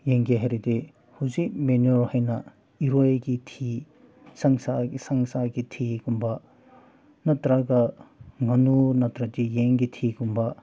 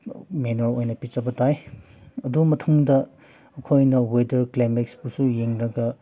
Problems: background sounds at intervals